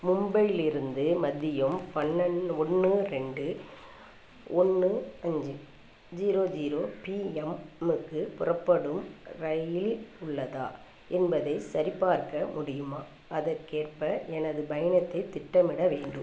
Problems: none marked